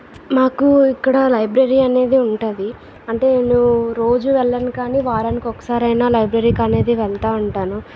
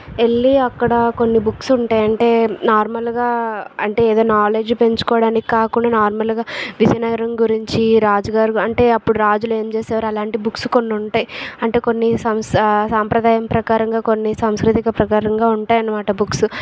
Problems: background sounds at intervals, background conversations at intervals